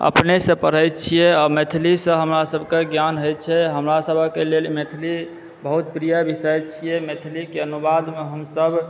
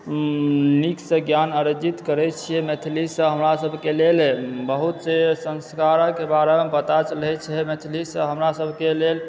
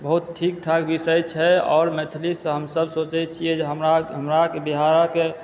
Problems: background sounds at intervals